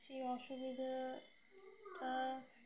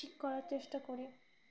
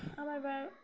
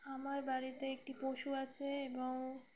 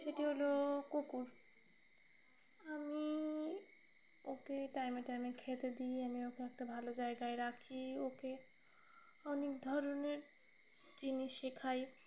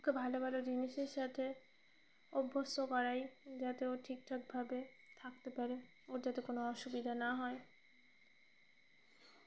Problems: constant background noise